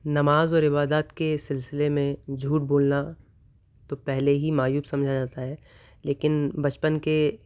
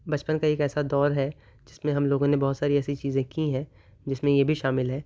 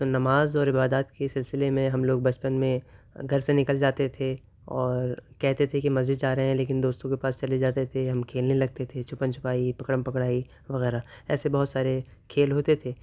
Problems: none marked